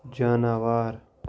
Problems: none marked